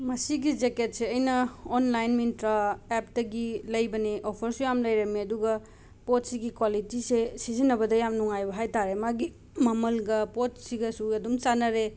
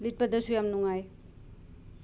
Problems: none marked